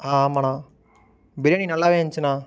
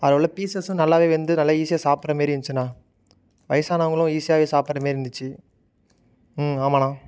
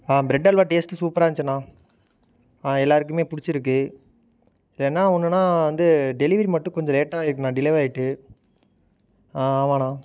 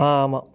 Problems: none marked